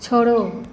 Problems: none marked